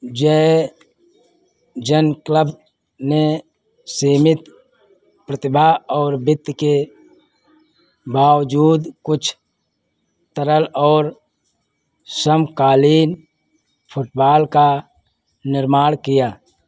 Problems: none marked